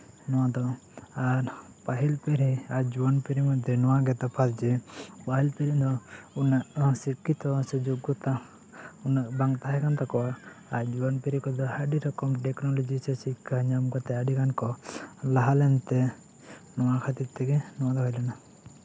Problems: background sounds at intervals, continuous background conversations